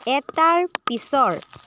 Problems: constant background noise